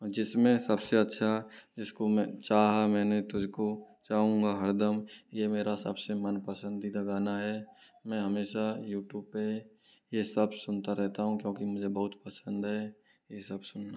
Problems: low volume